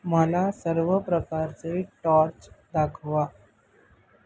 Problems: none marked